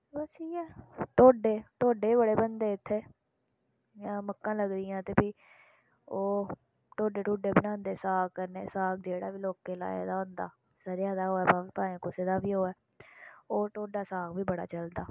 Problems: background sounds at intervals